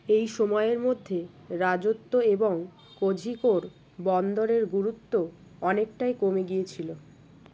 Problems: constant background noise